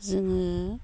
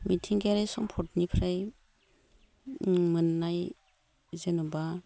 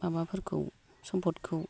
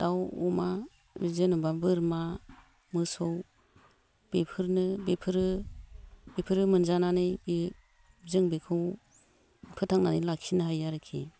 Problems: none marked